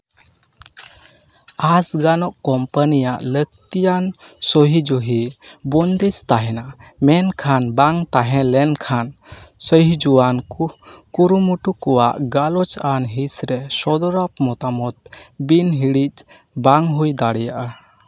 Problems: none marked